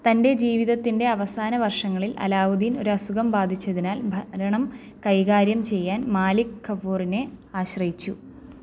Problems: low volume